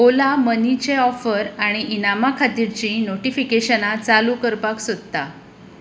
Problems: constant background noise